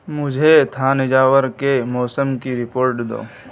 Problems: constant background noise